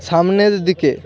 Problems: continuous background conversations